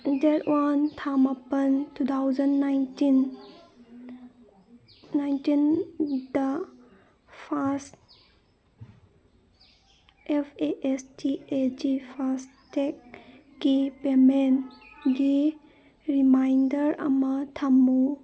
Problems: background sounds at intervals, background conversations at intervals